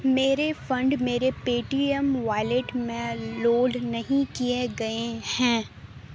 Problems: constant background noise